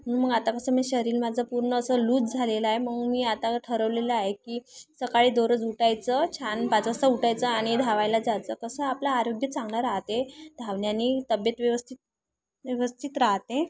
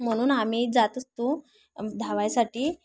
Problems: none marked